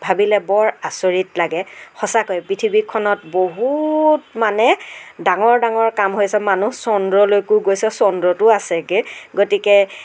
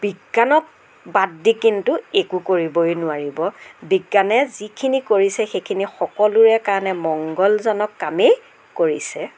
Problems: none marked